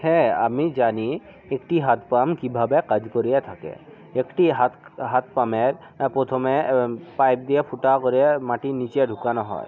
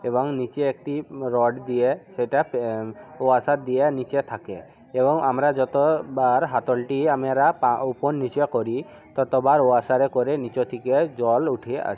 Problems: background conversations at intervals